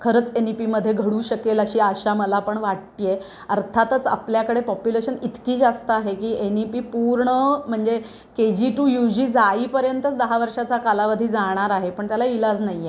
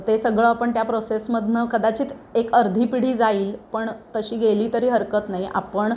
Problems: constant background noise